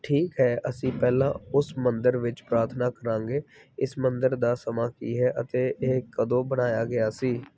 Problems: none marked